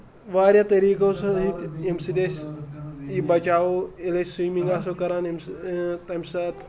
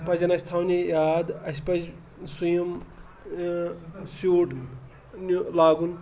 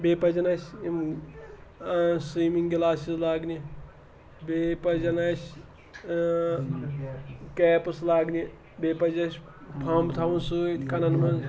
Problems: background sounds at intervals, background conversations at intervals